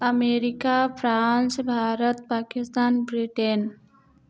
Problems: none marked